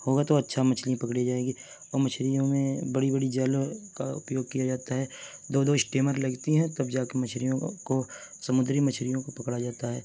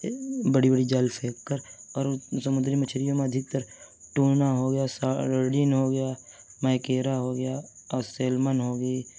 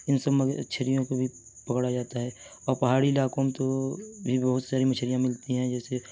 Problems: none marked